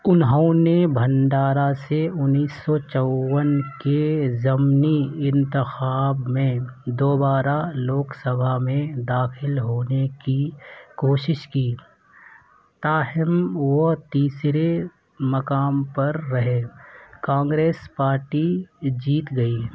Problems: none marked